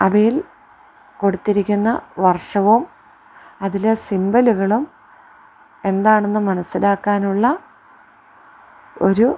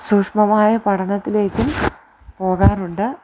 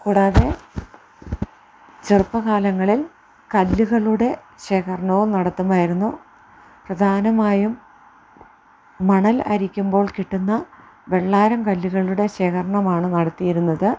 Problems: background sounds at intervals